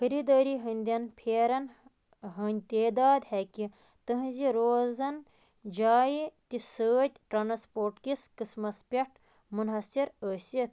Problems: constant background noise